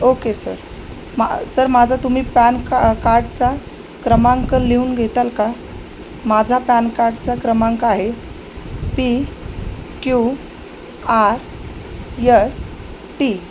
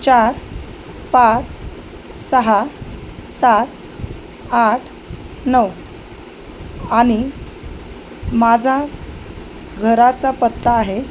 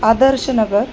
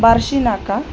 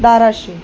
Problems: constant background noise